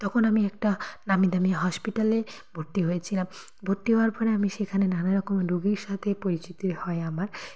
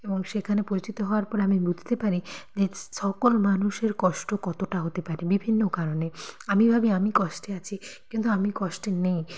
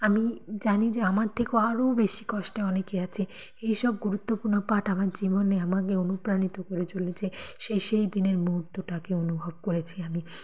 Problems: background conversations at intervals